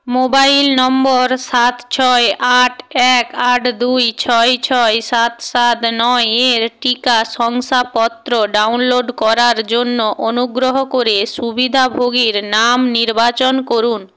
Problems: none marked